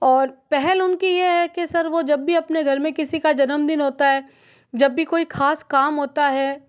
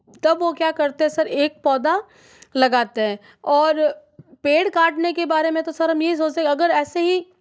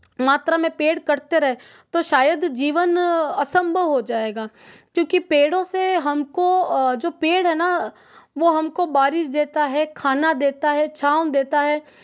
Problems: background sounds at intervals